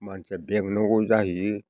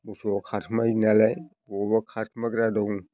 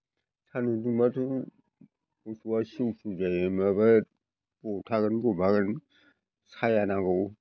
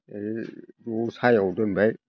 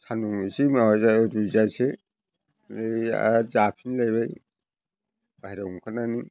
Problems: constant background noise